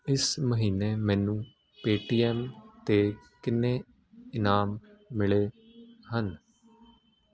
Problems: constant background noise